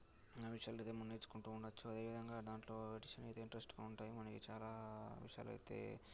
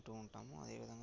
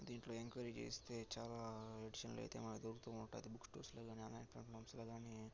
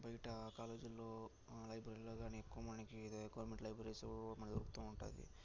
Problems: low volume